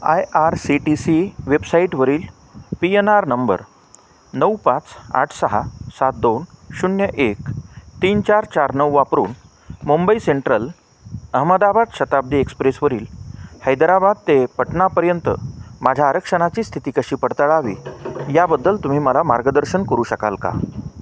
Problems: none marked